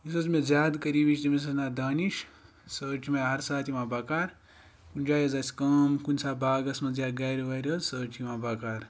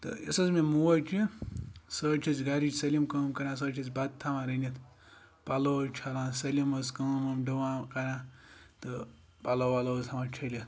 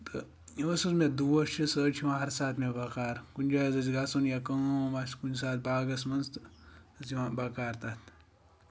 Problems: background sounds at intervals